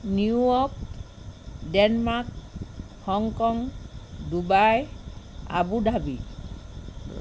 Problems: constant background noise